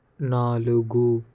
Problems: none marked